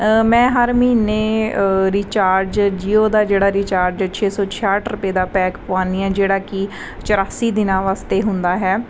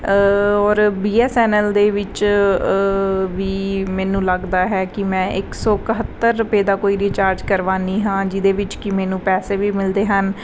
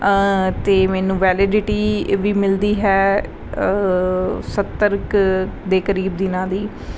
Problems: none marked